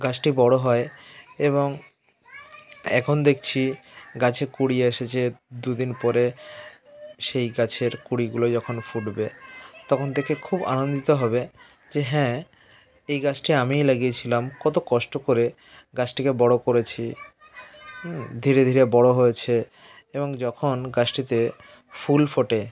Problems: continuous background conversations